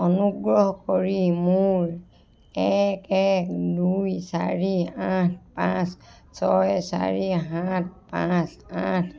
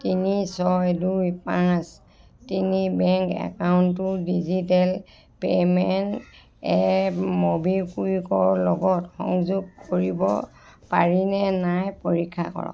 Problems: background conversations at intervals